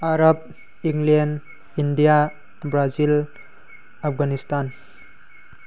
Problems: constant background noise